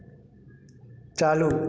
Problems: background sounds at intervals